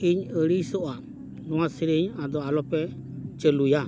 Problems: constant background noise